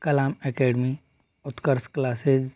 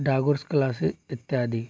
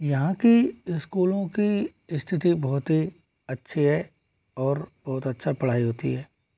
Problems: low volume